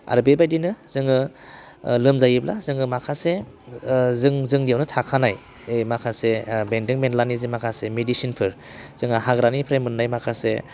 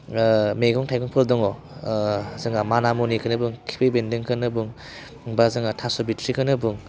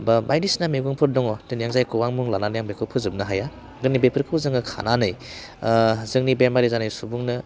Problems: constant background noise